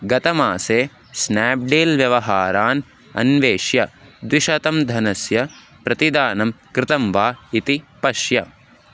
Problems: none marked